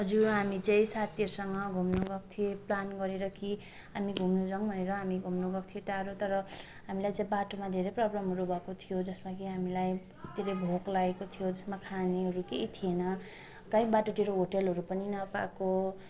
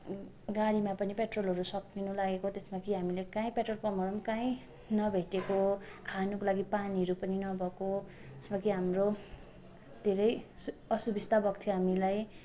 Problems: continuous background conversations